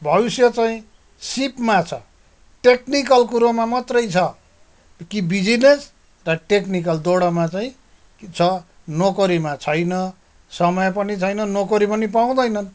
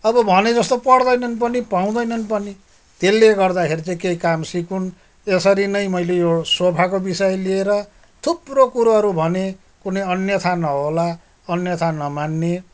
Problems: background sounds at intervals